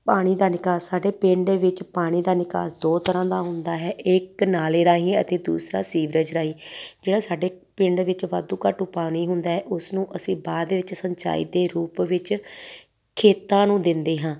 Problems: none marked